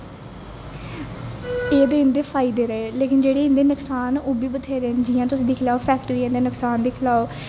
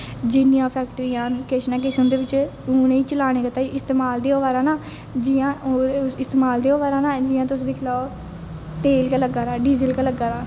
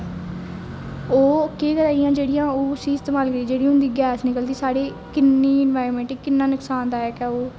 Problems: constant background noise, echo